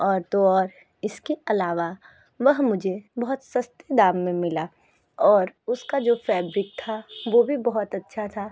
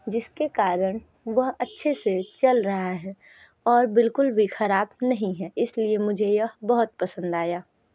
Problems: background sounds at intervals, background conversations at intervals